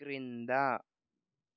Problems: low volume